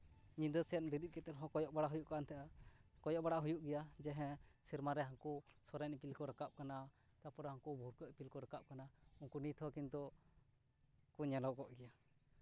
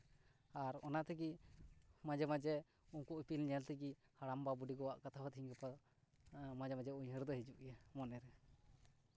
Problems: none marked